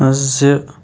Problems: none marked